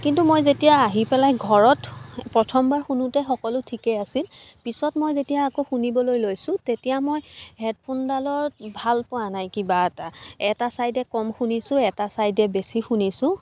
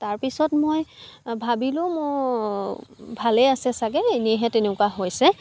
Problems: constant background noise, background conversations at intervals